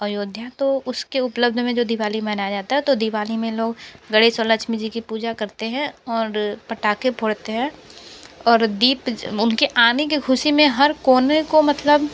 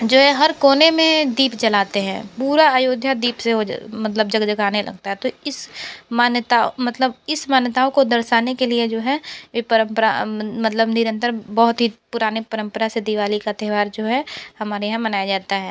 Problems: constant background noise